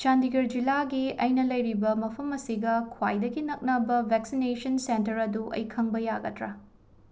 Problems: none marked